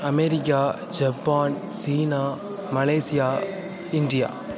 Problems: constant background noise